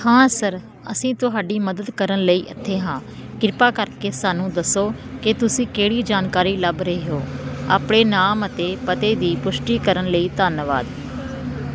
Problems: constant background noise